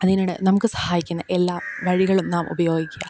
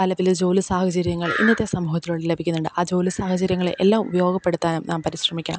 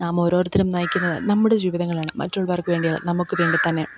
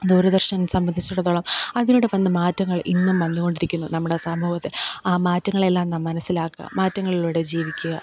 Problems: background sounds at intervals